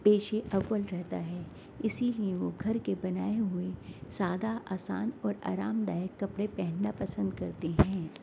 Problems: constant background noise